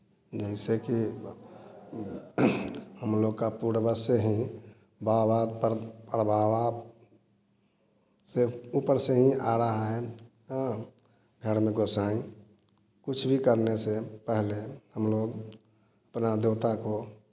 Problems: constant background noise